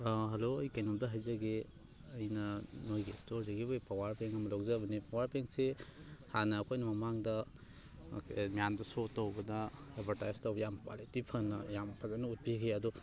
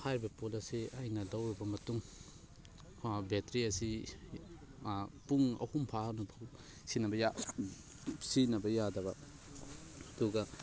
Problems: constant background noise, background conversations at intervals